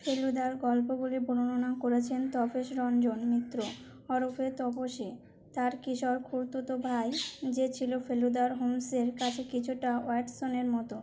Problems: background sounds at intervals